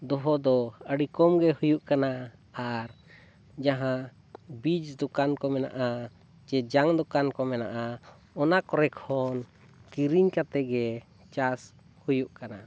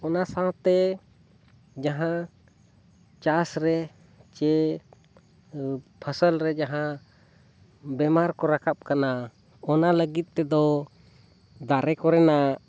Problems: none marked